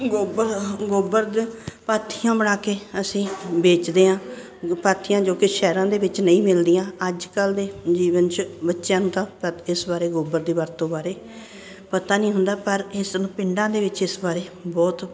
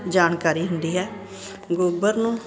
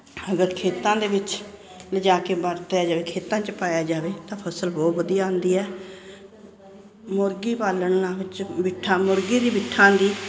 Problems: none marked